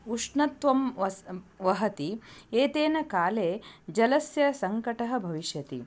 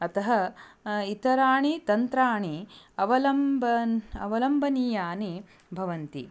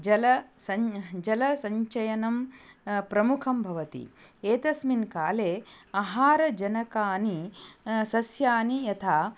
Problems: none marked